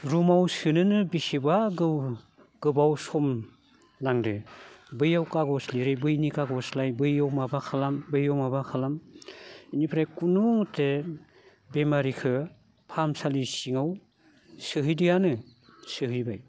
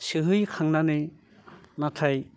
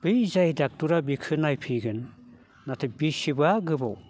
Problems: none marked